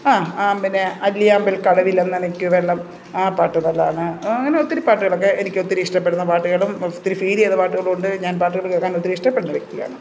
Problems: constant background noise